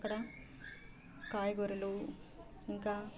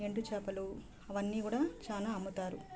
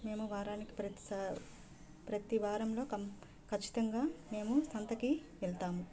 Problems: constant background noise, background conversations at intervals